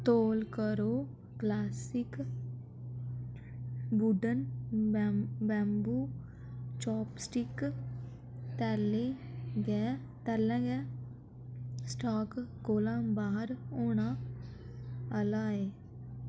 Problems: echo